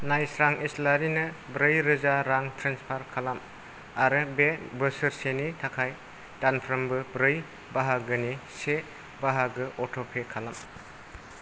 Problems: none marked